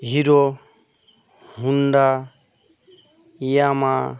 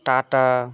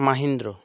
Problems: constant background noise